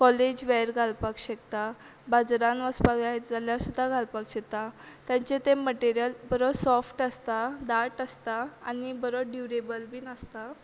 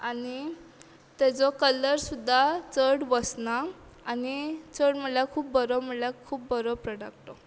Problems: background sounds at intervals